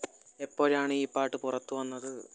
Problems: background sounds at intervals